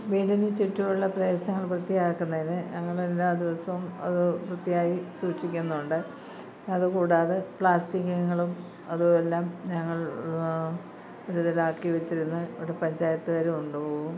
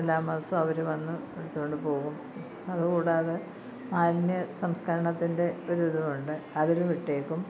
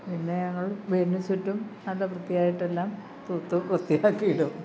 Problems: low volume